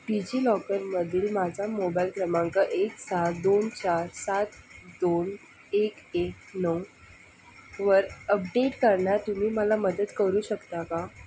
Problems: constant background noise